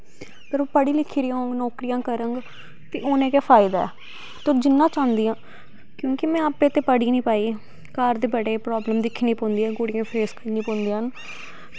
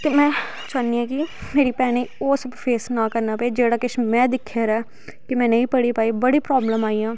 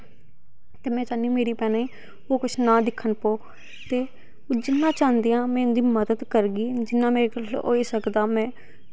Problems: background sounds at intervals